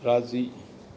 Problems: none marked